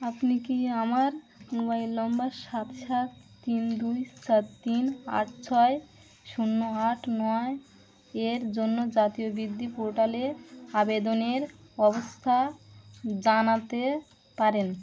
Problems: none marked